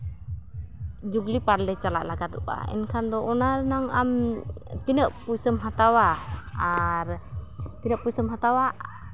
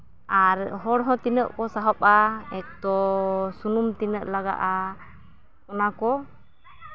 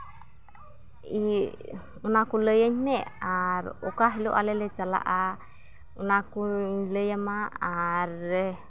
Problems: background sounds at intervals, continuous background conversations